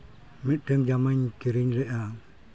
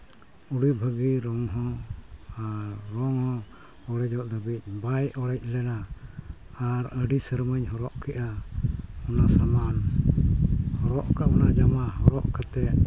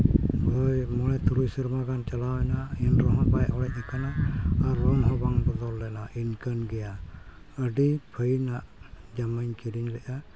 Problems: constant background noise, background conversations at intervals